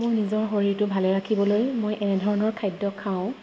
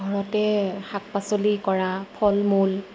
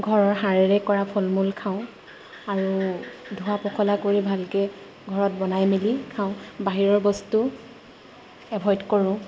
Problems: none marked